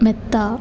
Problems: none marked